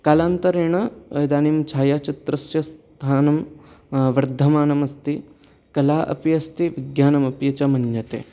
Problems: none marked